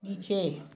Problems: background sounds at intervals, background conversations at intervals